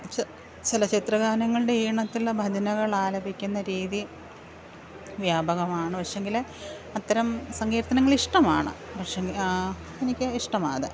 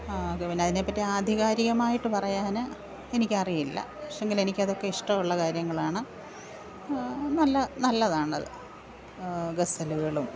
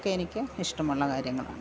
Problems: background sounds at intervals